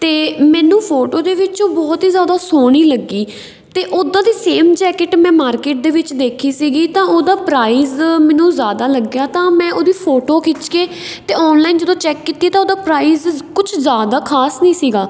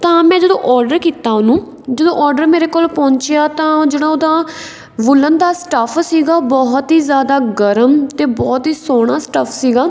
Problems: none marked